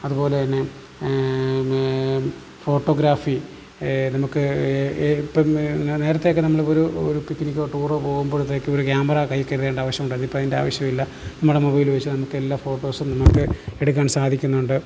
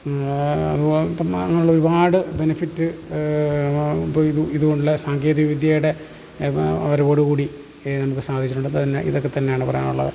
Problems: constant background noise, low volume